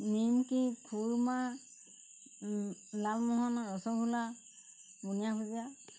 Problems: constant background noise